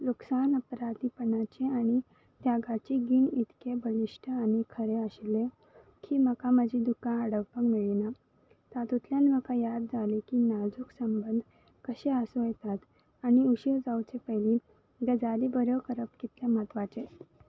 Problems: background sounds at intervals